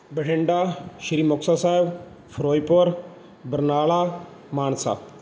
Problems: background sounds at intervals